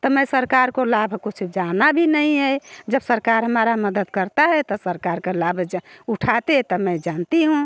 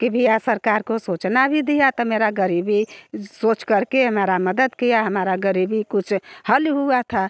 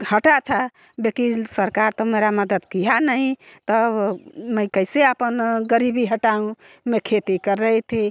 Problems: background sounds at intervals